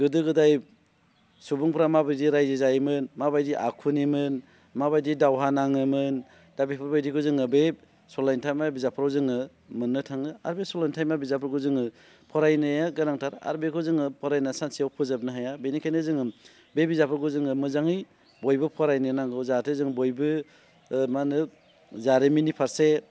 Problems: none marked